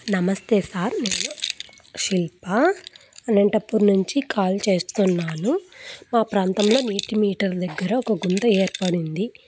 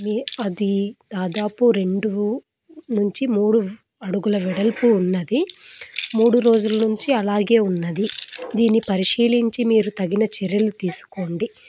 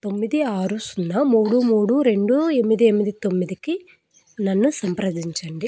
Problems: background sounds at intervals